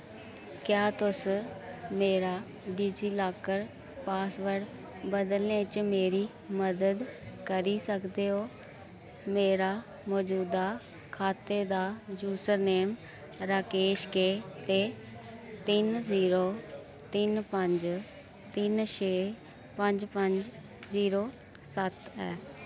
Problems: constant background noise